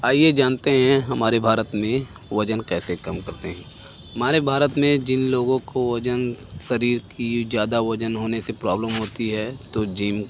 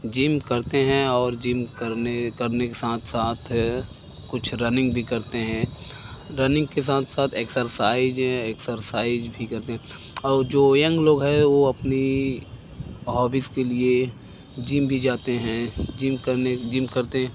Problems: background sounds at intervals